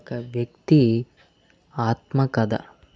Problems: constant background noise